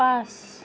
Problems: constant background noise